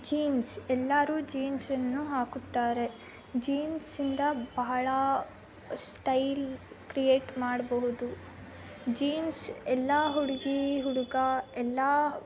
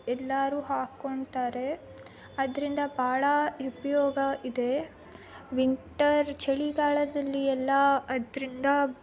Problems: constant background noise